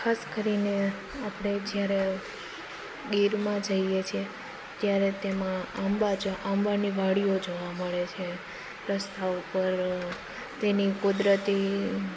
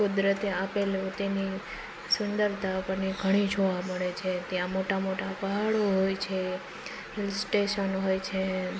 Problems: none marked